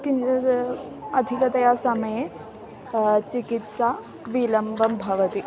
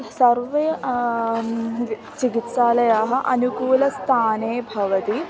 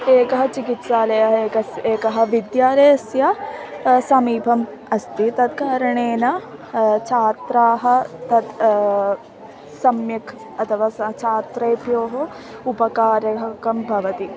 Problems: constant background noise, continuous background conversations